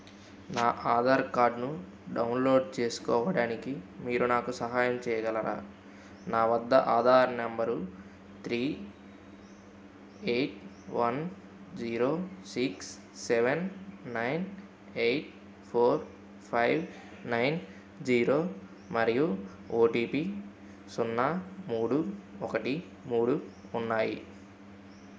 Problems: constant background noise